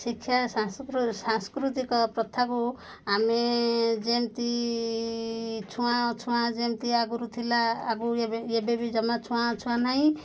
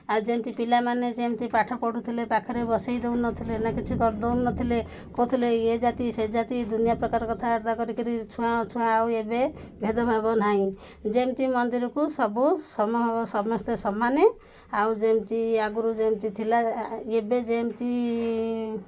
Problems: background sounds at intervals